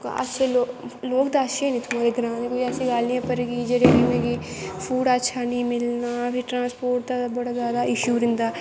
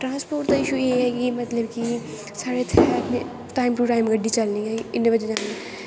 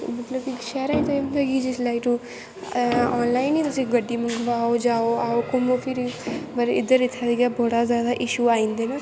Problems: constant background noise, echo